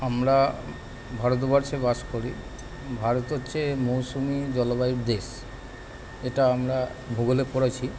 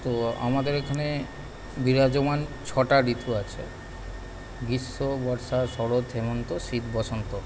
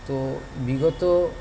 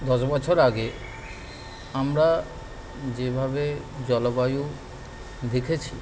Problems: constant background noise, continuous background conversations